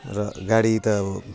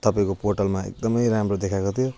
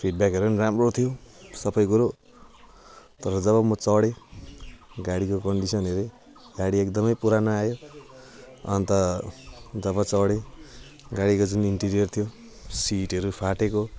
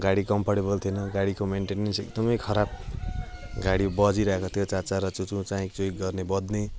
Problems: constant background noise